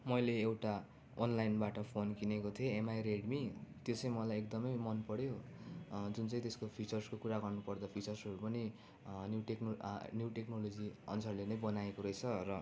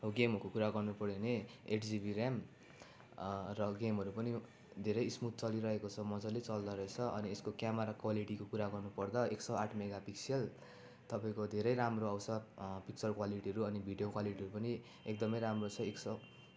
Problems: background sounds at intervals